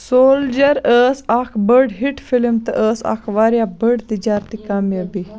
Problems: background sounds at intervals